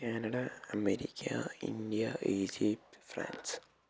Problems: low volume